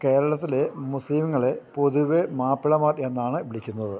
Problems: low volume